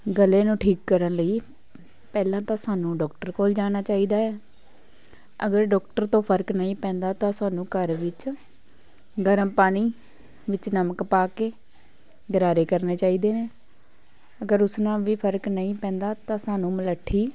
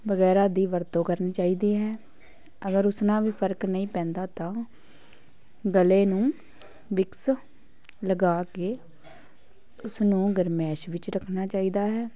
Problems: constant background noise